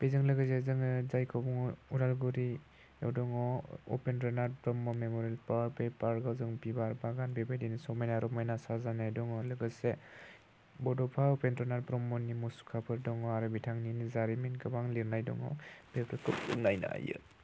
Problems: none marked